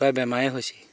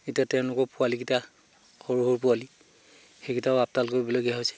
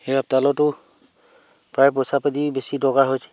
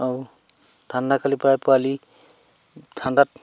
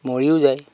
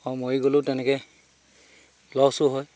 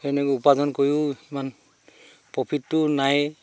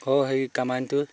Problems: none marked